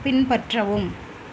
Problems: constant background noise